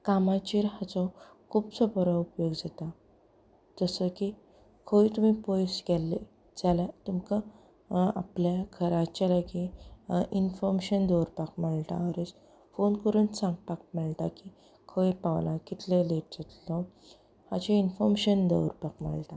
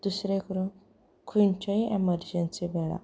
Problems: background sounds at intervals, background conversations at intervals